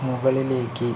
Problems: none marked